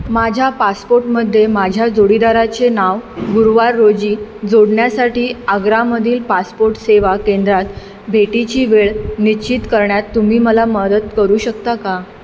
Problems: none marked